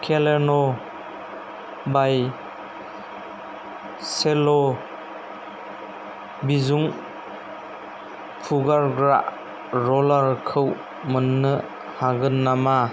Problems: none marked